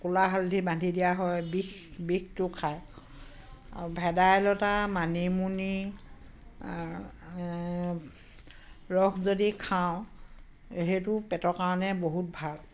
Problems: constant background noise, background conversations at intervals